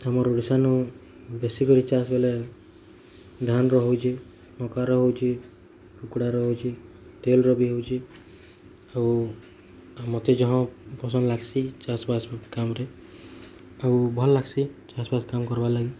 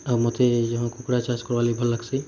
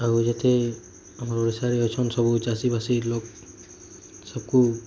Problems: none marked